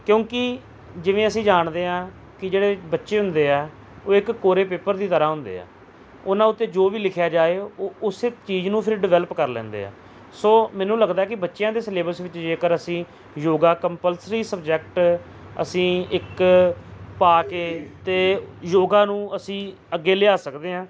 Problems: background sounds at intervals